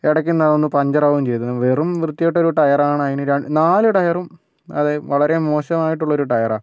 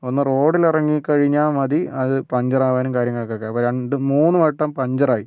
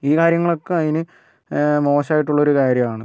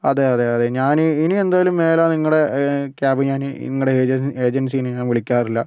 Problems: none marked